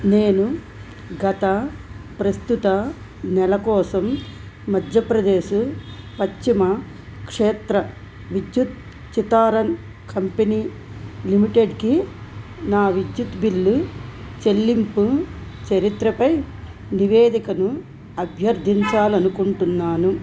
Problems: constant background noise